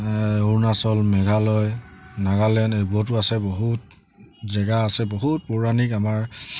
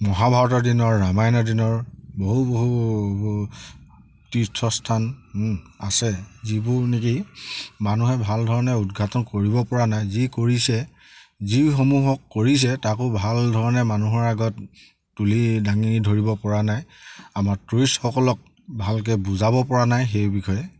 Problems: background sounds at intervals